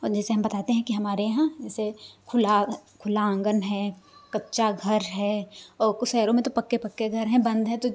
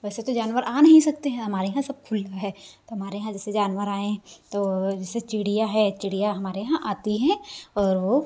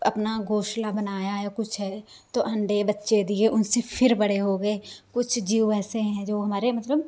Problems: constant background noise